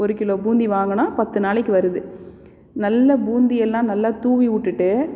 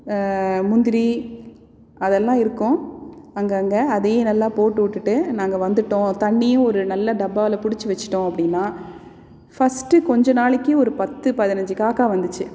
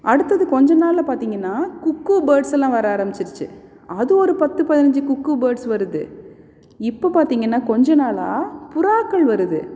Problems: none marked